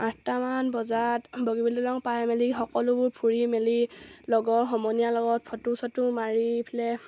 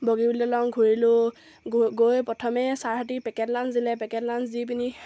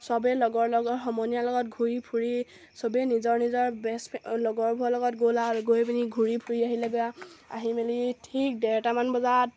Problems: none marked